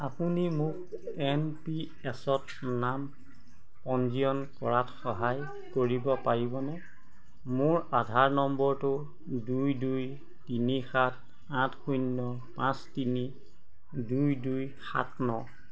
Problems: constant background noise